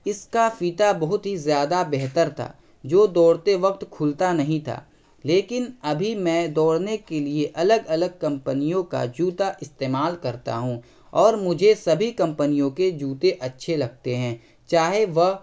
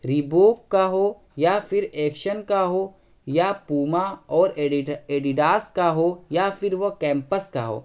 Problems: constant background noise